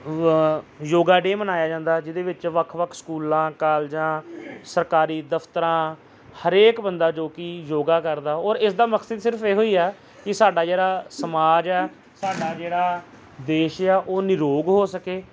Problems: background sounds at intervals, background conversations at intervals